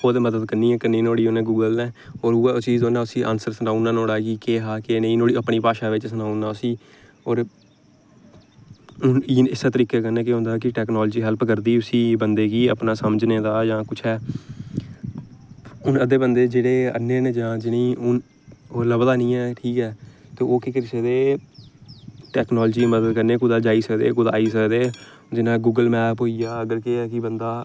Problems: none marked